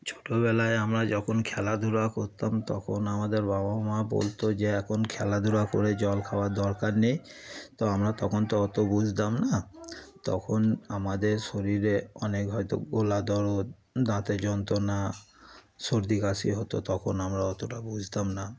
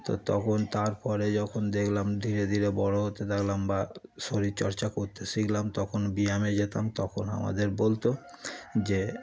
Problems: background sounds at intervals, continuous background conversations